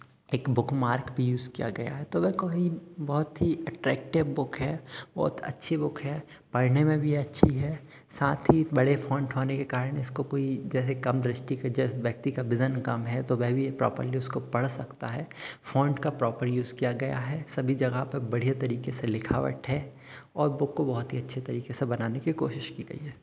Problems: none marked